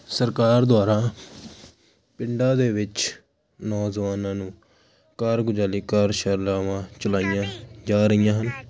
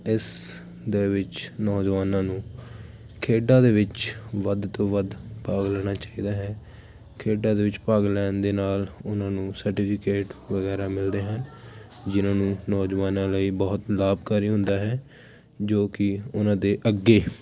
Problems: constant background noise